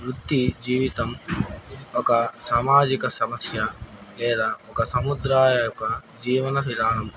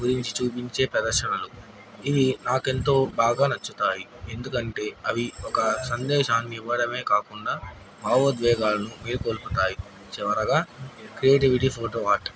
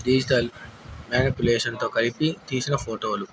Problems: constant background noise